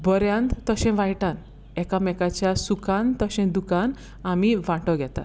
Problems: background sounds at intervals